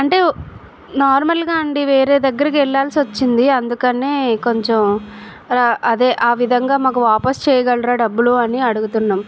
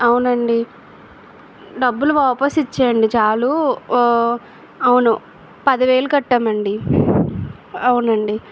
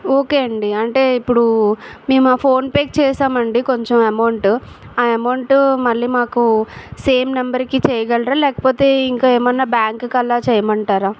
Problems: background sounds at intervals